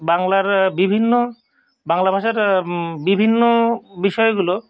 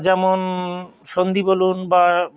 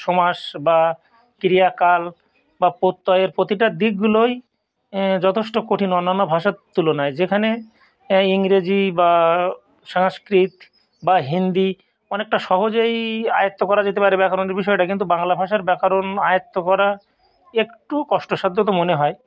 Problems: background sounds at intervals